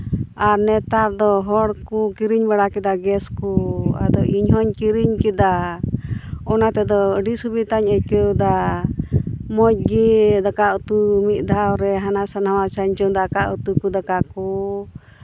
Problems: none marked